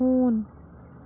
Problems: constant background noise